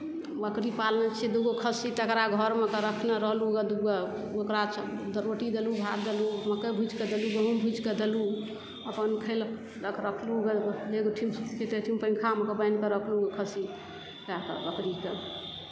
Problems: background sounds at intervals, background conversations at intervals